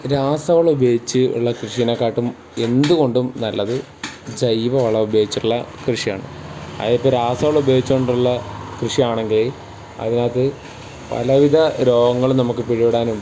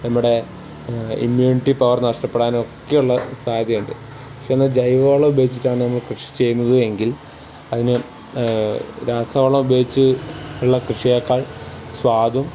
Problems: background sounds at intervals